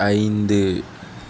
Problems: none marked